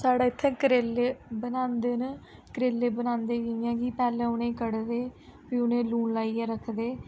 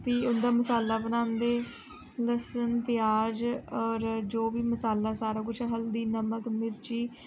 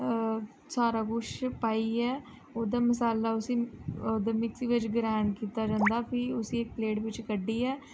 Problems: low volume